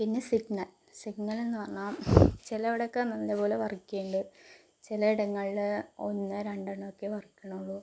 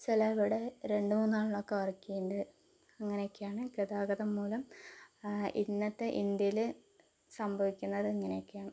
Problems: low volume